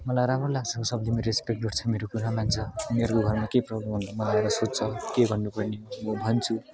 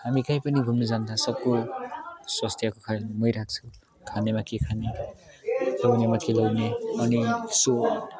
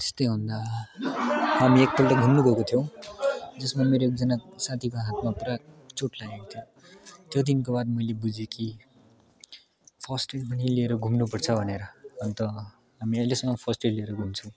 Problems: constant background noise, continuous background conversations